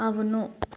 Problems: none marked